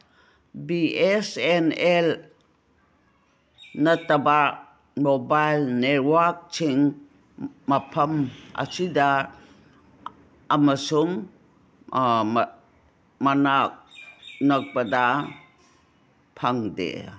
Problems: none marked